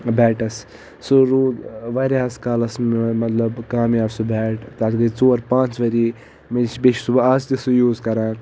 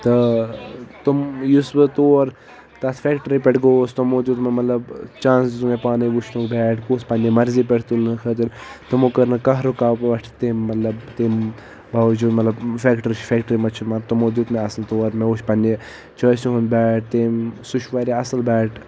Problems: constant background noise